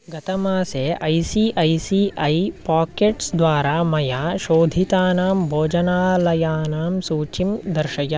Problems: constant background noise